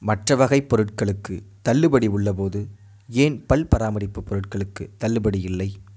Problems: none marked